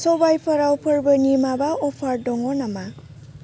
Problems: constant background noise